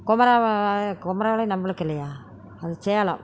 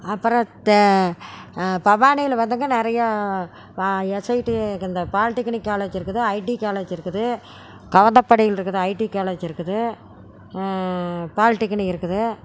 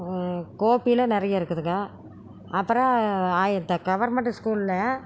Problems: background conversations at intervals